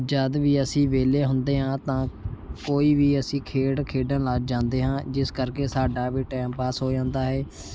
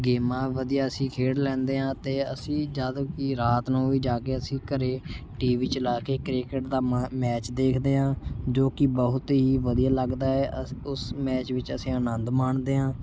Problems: constant background noise